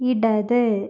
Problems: none marked